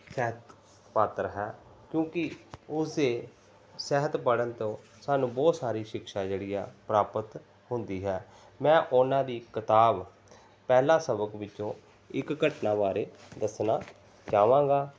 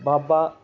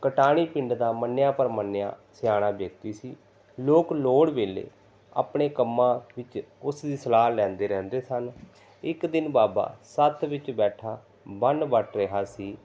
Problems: background sounds at intervals, background conversations at intervals